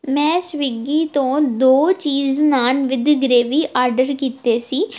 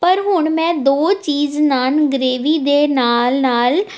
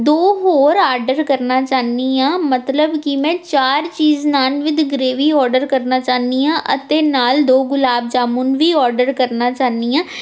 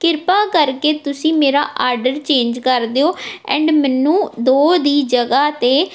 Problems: none marked